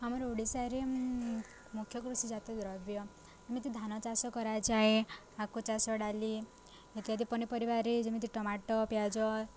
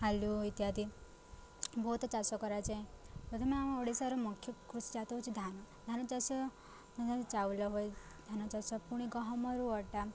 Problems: none marked